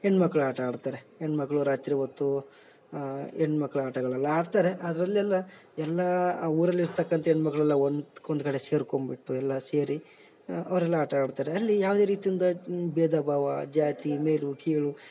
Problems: background sounds at intervals